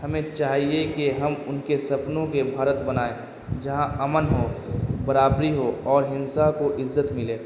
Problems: constant background noise